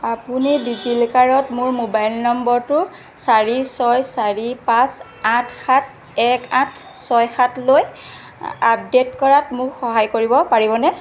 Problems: constant background noise